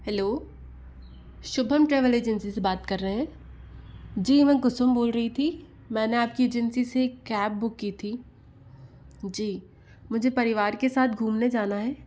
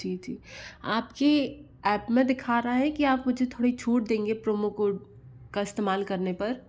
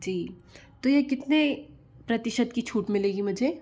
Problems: low volume